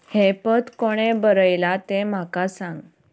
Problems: background sounds at intervals